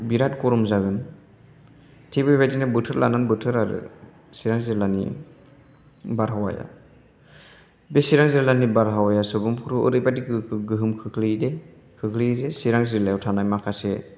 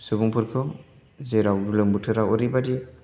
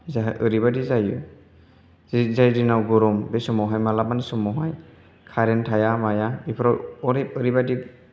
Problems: none marked